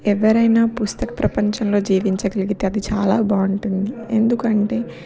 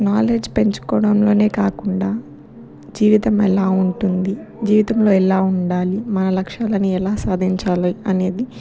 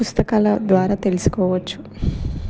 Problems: background sounds at intervals